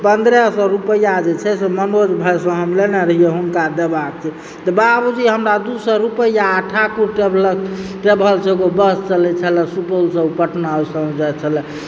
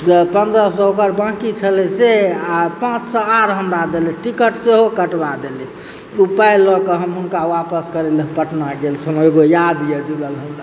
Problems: background sounds at intervals